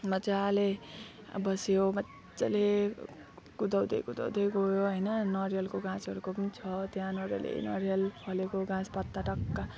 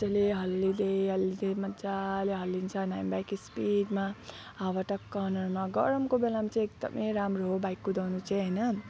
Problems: constant background noise, background conversations at intervals